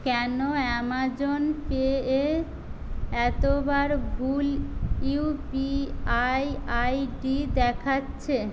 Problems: constant background noise